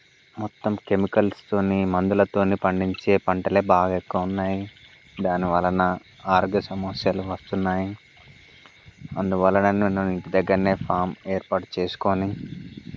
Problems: constant background noise